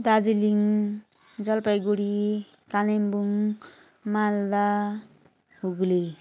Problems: none marked